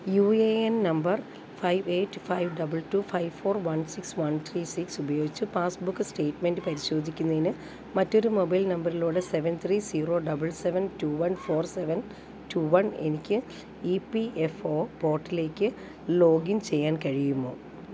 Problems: none marked